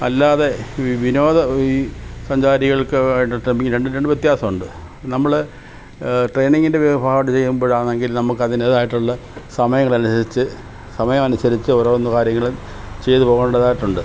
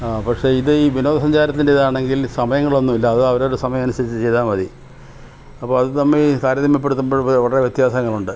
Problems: background sounds at intervals